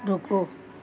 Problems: constant background noise, background conversations at intervals